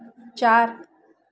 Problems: constant background noise, background conversations at intervals